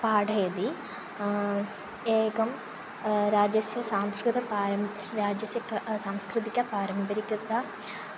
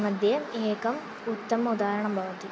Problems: none marked